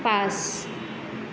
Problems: constant background noise